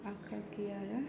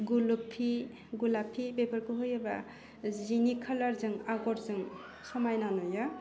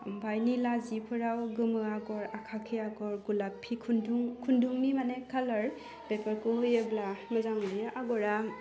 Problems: low volume